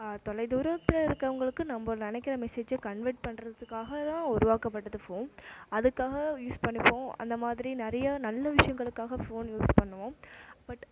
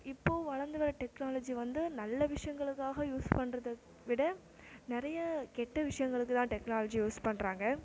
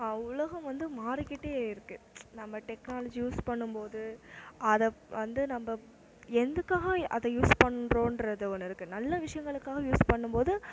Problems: constant background noise